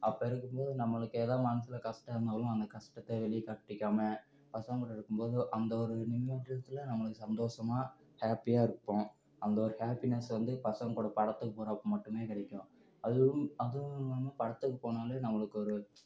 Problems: low volume